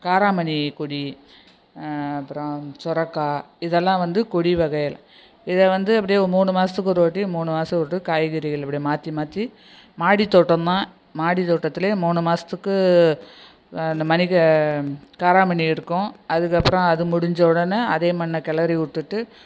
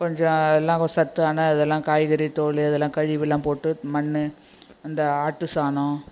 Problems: echo